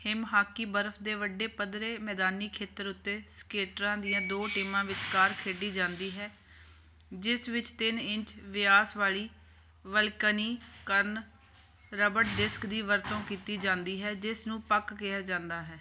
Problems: none marked